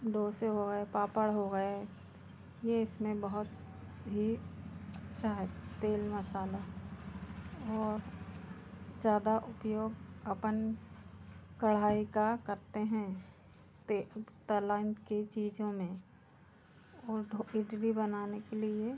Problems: constant background noise, background conversations at intervals